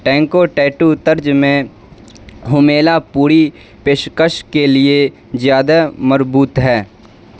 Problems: constant background noise